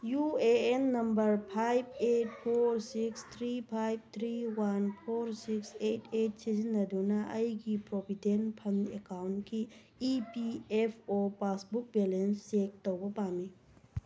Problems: background conversations at intervals